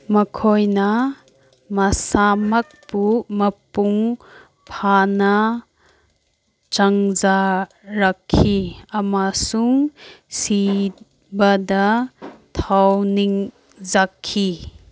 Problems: background sounds at intervals